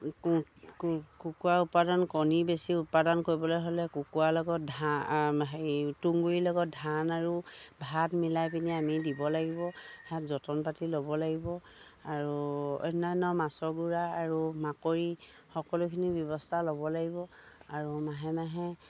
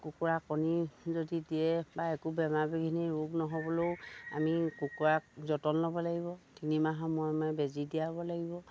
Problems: low volume